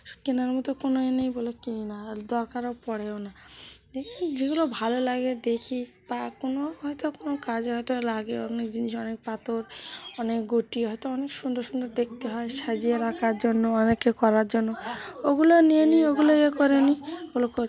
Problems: background sounds at intervals